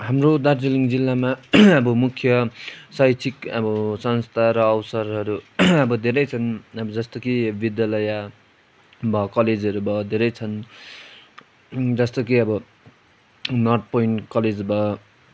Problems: none marked